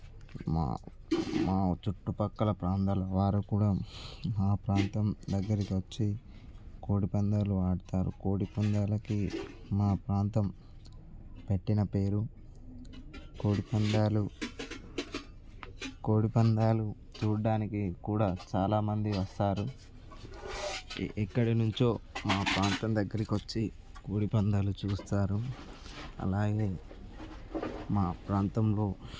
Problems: none marked